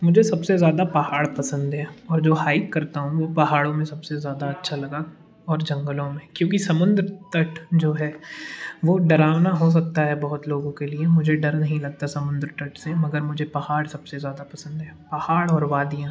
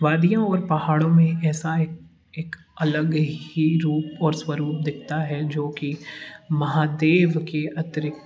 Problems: none marked